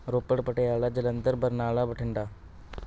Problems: background sounds at intervals